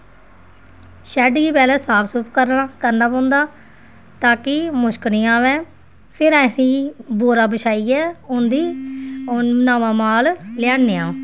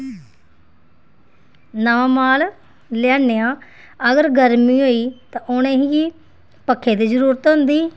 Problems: background sounds at intervals